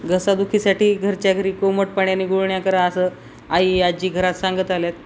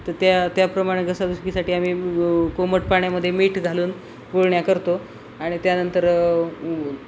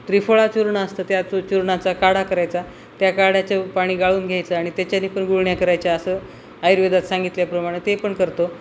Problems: none marked